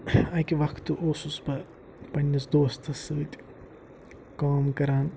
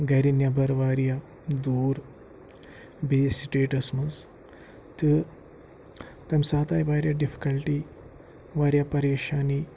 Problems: low volume